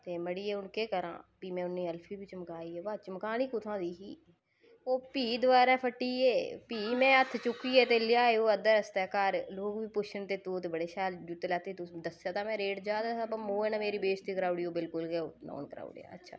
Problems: none marked